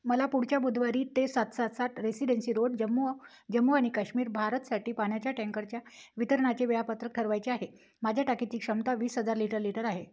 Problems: none marked